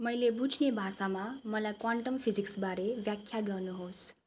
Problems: none marked